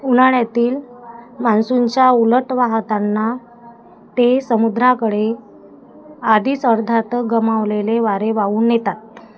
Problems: constant background noise, background conversations at intervals